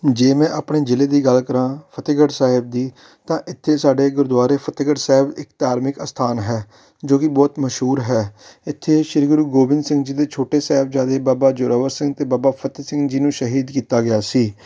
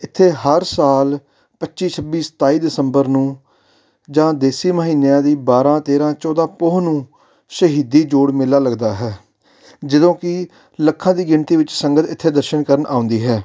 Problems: background sounds at intervals